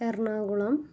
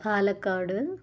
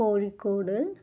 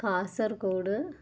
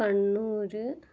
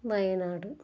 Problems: low volume